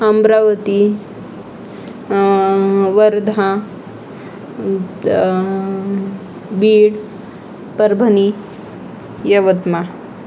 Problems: constant background noise, background conversations at intervals